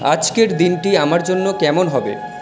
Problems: background sounds at intervals